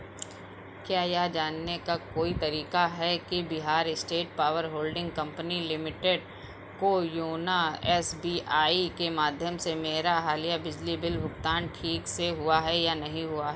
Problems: constant background noise